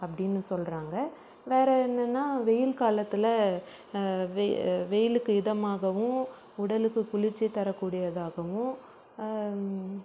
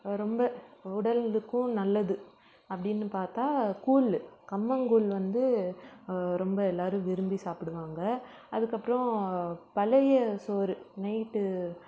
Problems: background sounds at intervals